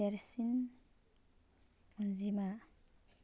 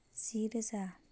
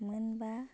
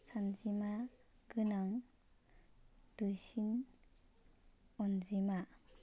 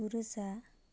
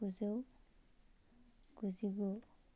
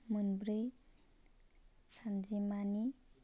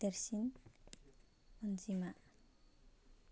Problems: constant background noise